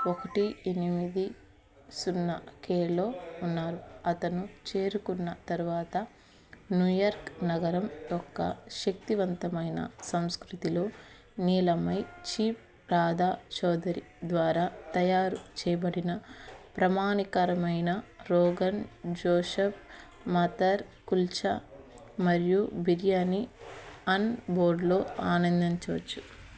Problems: background sounds at intervals, background conversations at intervals